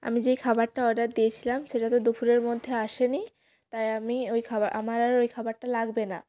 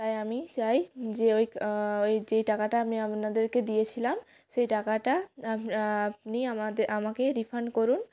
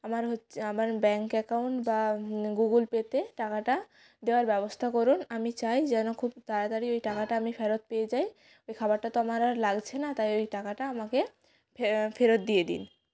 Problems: background conversations at intervals